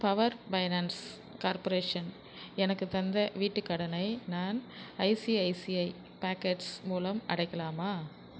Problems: none marked